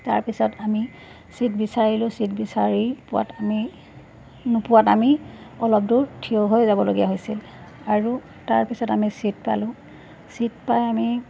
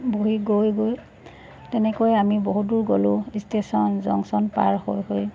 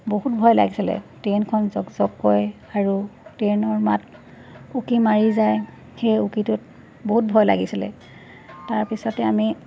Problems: constant background noise, background conversations at intervals